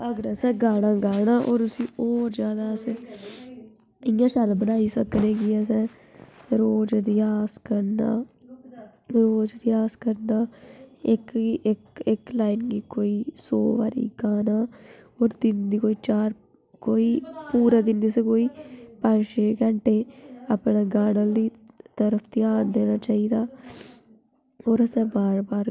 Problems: background sounds at intervals